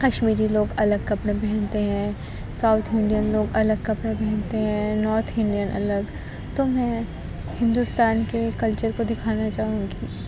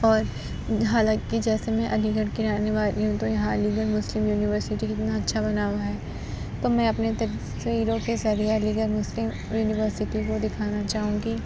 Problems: background sounds at intervals